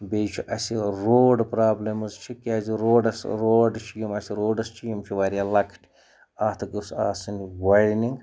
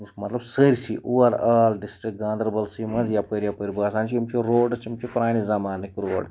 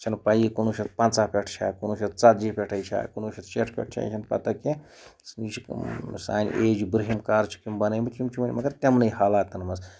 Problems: background sounds at intervals